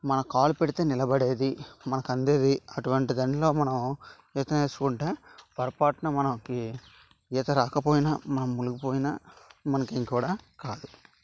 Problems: constant background noise